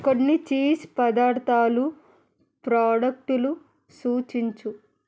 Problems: none marked